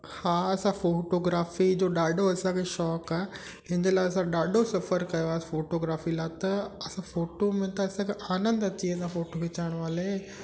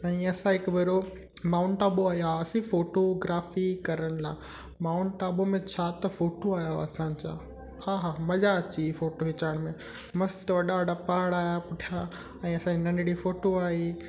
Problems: constant background noise, echo